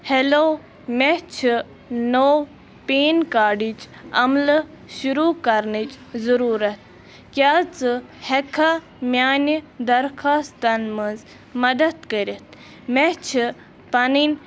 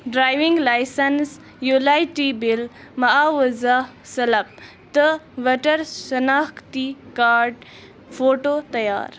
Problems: constant background noise, continuous background conversations